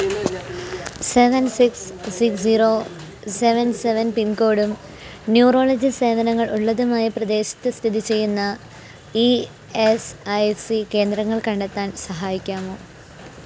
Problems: constant background noise